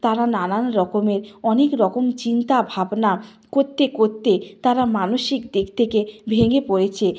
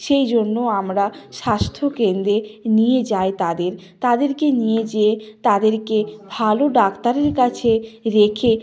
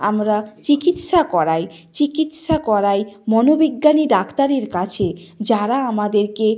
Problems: background sounds at intervals, continuous background conversations